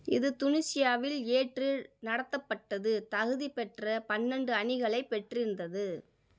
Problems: none marked